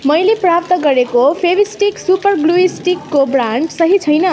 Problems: background sounds at intervals